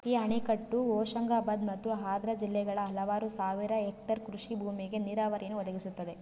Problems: none marked